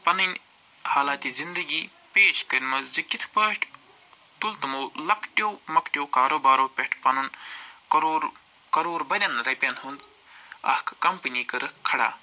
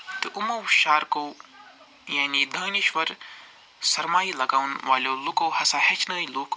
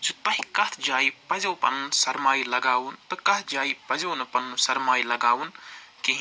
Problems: background sounds at intervals